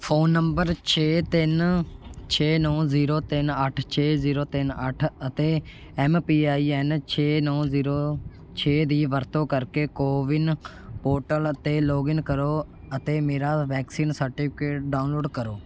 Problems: background sounds at intervals